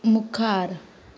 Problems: none marked